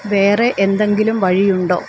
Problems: constant background noise